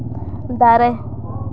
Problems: none marked